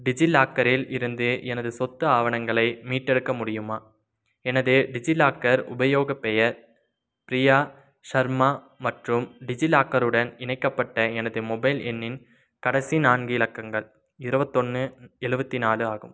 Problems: none marked